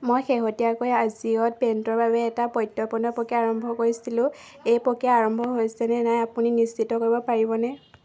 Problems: background sounds at intervals, background conversations at intervals